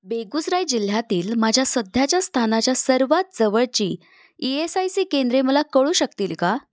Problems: background sounds at intervals